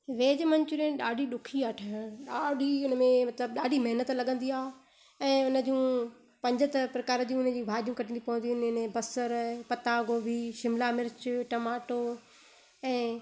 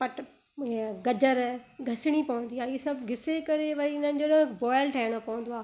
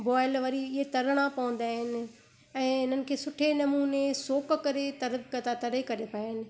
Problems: constant background noise